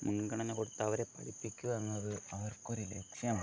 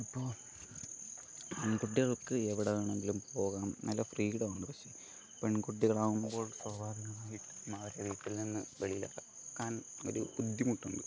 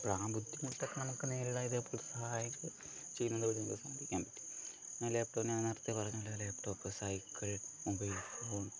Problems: low volume